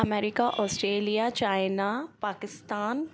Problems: none marked